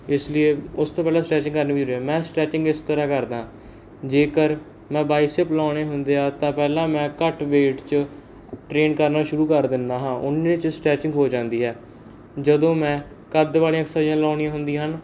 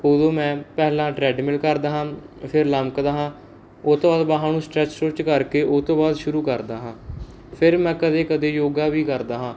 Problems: background sounds at intervals